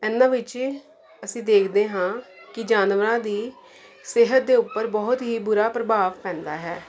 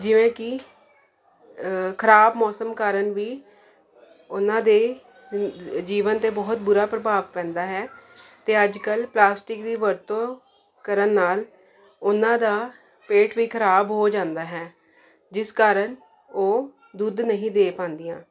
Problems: constant background noise